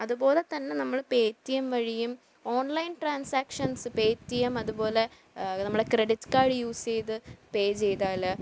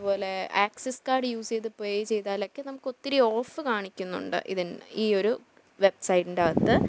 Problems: low volume